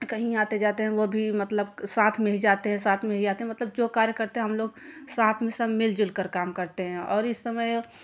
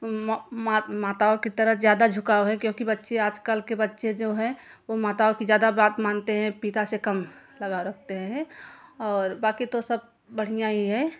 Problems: none marked